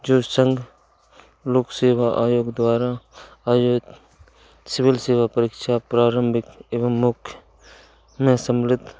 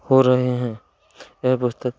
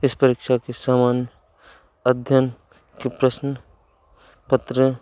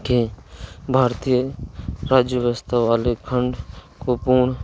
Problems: none marked